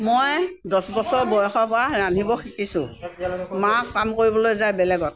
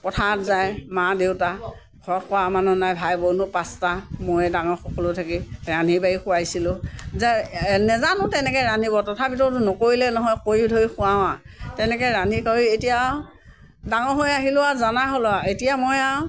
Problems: continuous background conversations